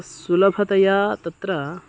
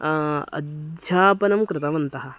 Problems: none marked